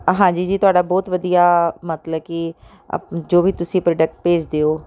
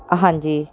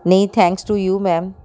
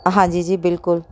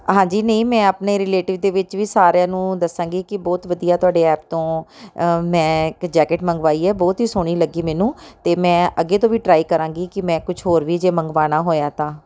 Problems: background conversations at intervals